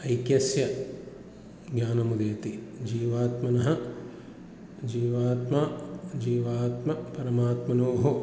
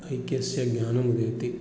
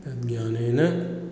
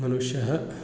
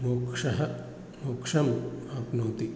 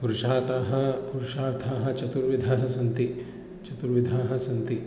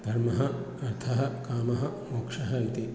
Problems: none marked